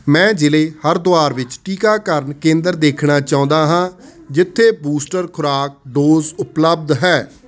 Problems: constant background noise